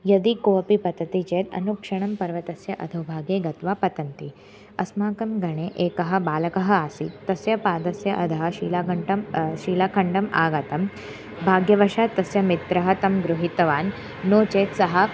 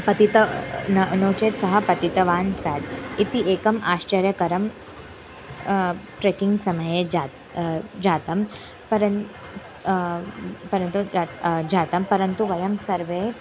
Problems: background sounds at intervals